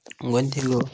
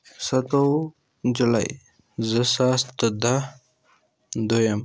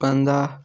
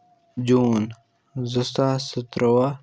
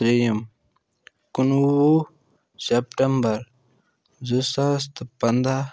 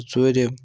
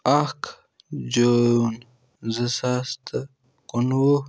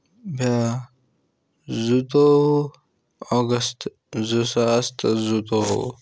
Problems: none marked